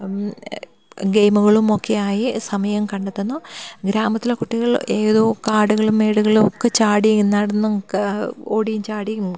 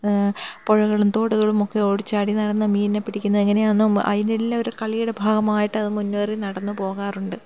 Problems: none marked